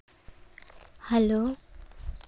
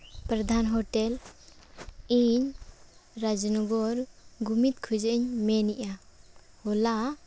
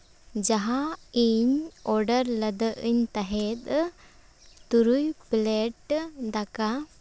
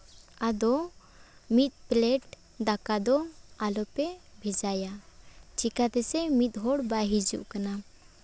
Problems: none marked